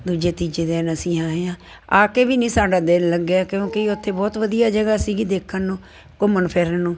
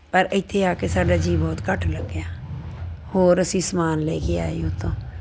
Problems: constant background noise